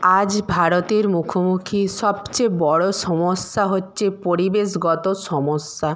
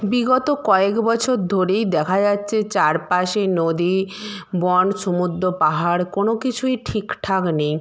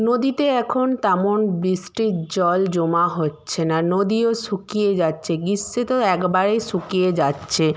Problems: background sounds at intervals